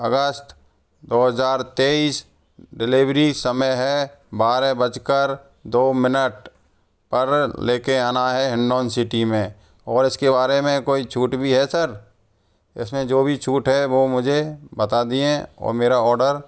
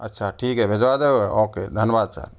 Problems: background sounds at intervals